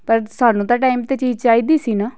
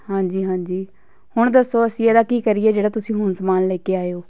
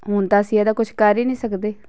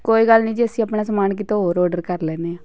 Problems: continuous background conversations